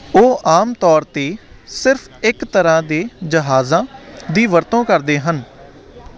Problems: constant background noise